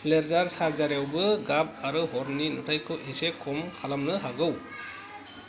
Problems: background conversations at intervals